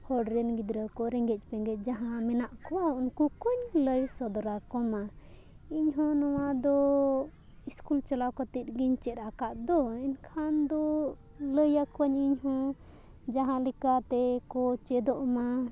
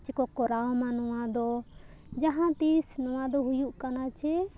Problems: none marked